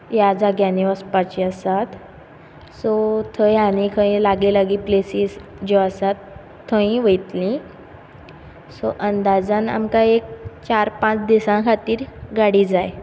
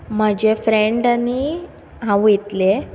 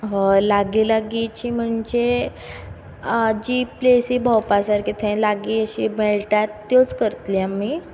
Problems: background sounds at intervals